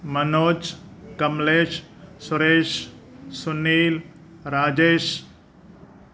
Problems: none marked